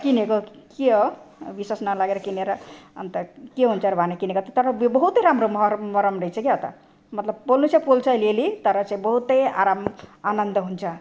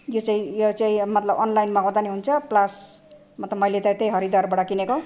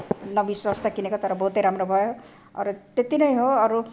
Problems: constant background noise